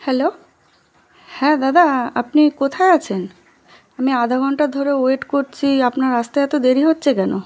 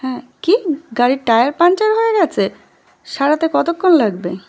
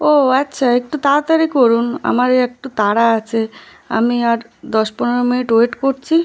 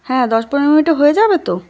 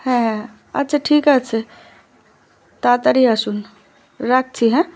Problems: constant background noise